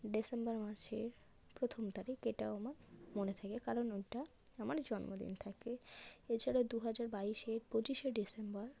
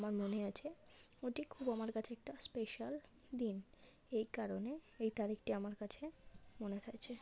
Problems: background sounds at intervals, low volume